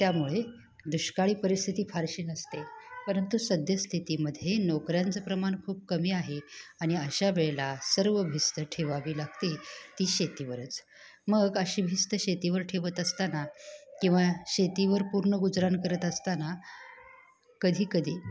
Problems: background conversations at intervals